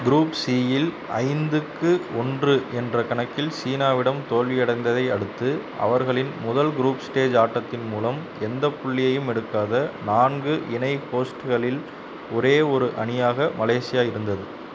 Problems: none marked